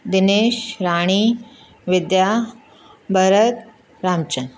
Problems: constant background noise